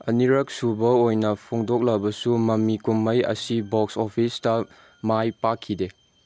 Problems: constant background noise